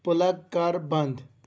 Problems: none marked